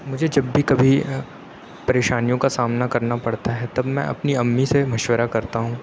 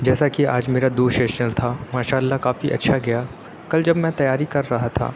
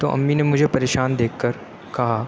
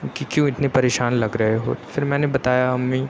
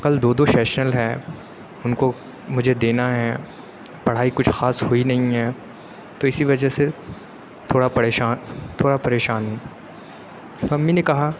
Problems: none marked